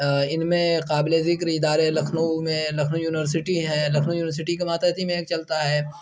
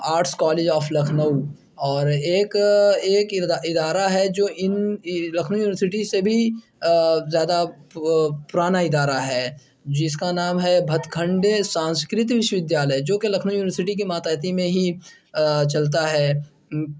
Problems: constant background noise